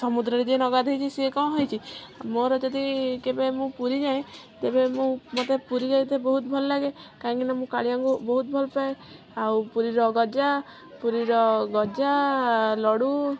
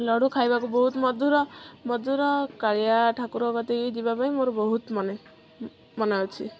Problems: none marked